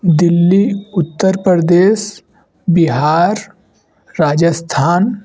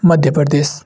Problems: none marked